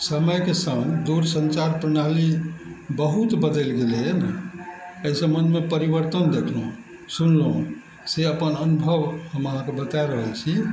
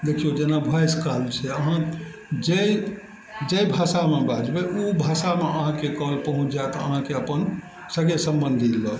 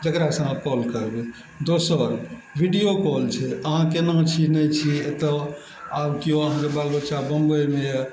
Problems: none marked